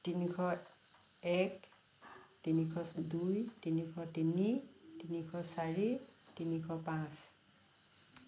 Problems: none marked